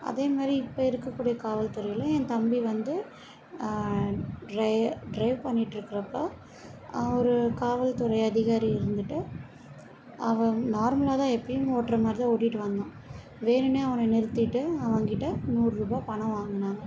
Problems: background sounds at intervals